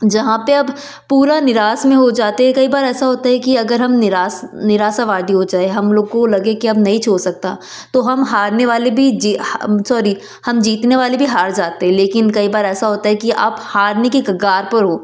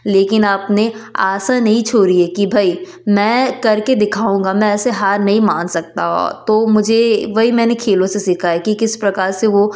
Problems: constant background noise